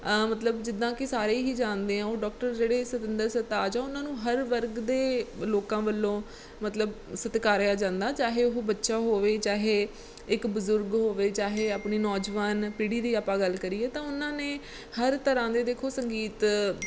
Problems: background sounds at intervals